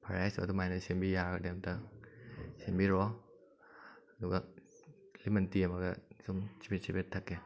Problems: background sounds at intervals